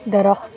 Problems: none marked